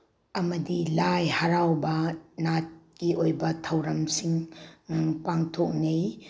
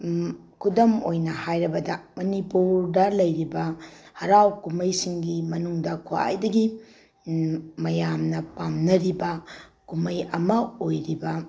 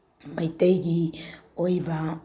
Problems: none marked